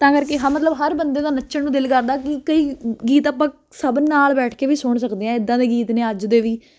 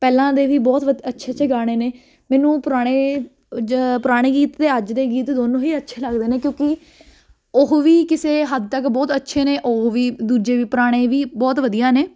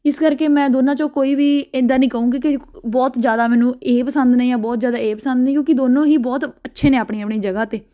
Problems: constant background noise